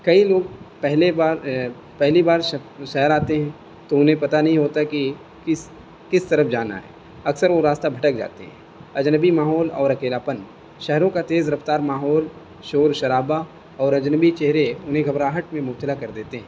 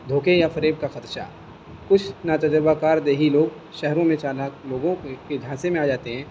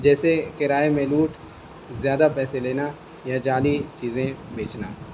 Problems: constant background noise